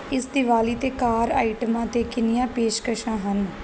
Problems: background sounds at intervals